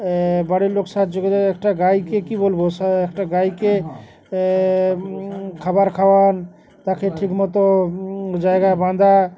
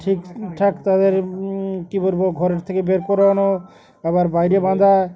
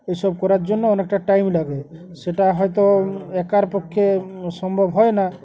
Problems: constant background noise, background conversations at intervals